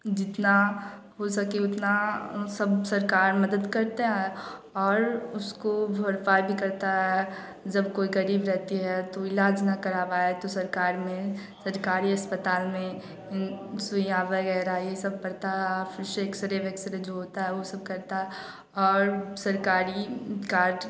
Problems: none marked